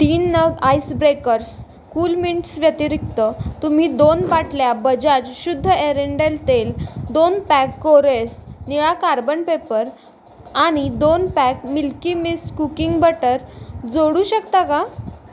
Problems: none marked